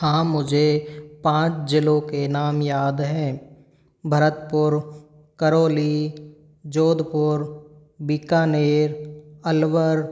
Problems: none marked